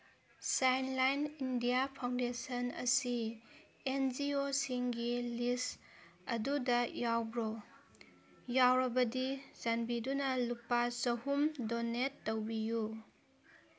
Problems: background sounds at intervals